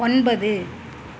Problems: constant background noise